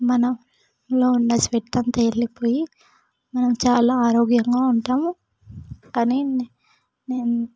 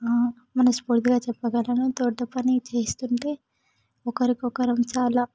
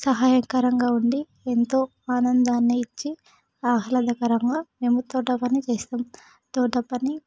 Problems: background sounds at intervals